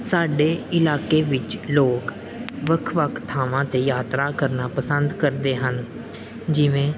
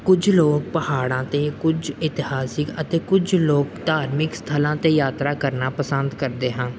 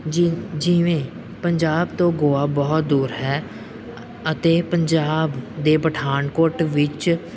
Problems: none marked